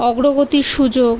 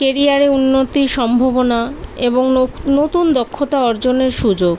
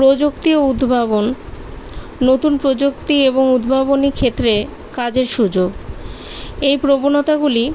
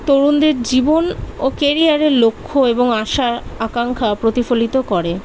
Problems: constant background noise